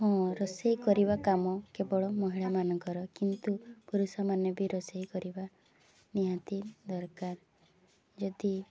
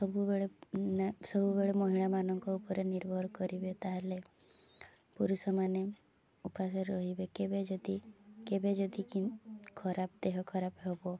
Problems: none marked